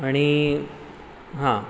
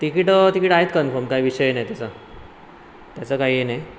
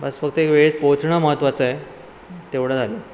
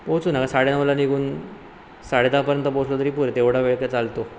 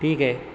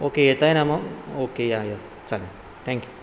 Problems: constant background noise